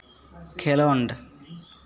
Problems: none marked